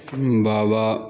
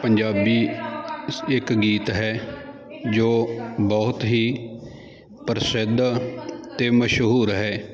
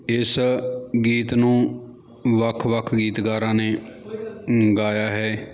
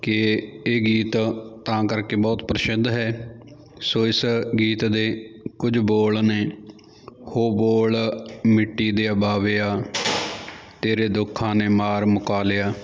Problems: continuous background conversations